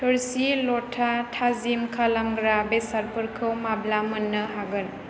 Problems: none marked